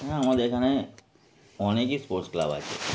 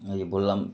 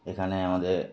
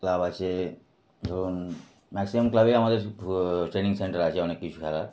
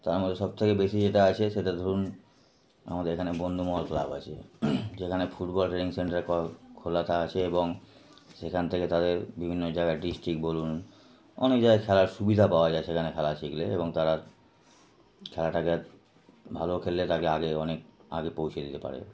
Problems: none marked